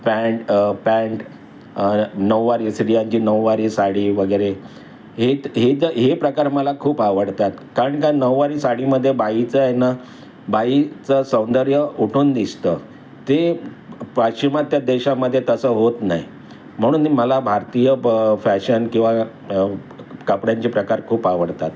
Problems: constant background noise